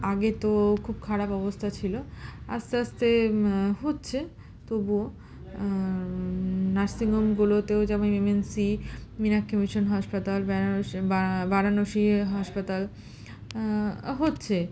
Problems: constant background noise, continuous background conversations